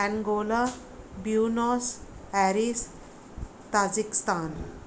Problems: background sounds at intervals